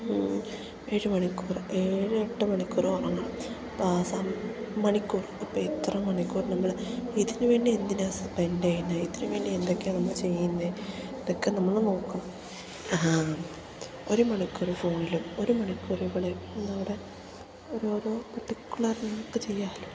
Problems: constant background noise